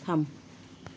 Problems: none marked